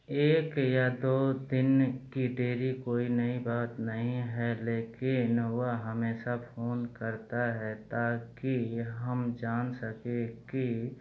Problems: none marked